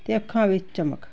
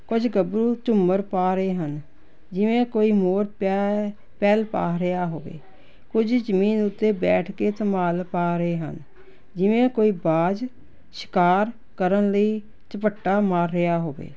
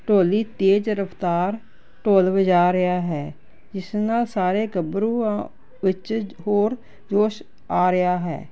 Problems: none marked